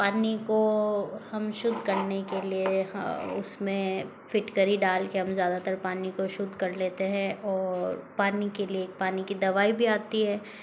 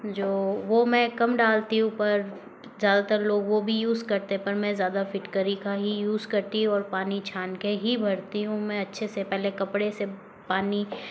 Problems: constant background noise